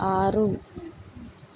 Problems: none marked